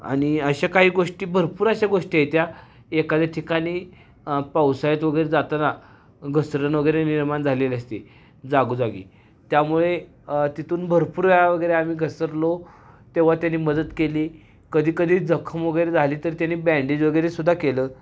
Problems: none marked